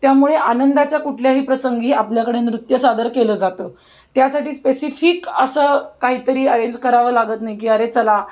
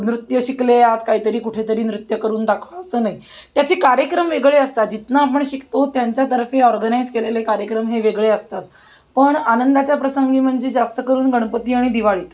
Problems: constant background noise